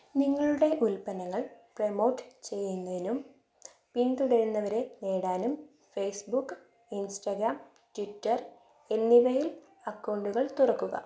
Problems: none marked